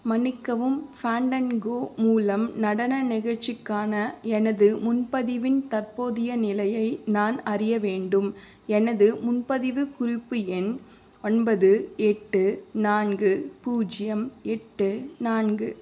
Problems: none marked